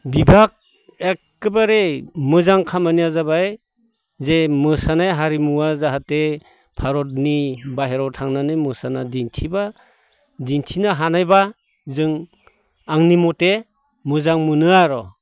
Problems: none marked